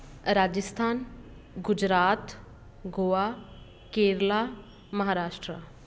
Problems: constant background noise